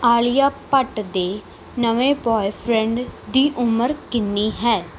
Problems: none marked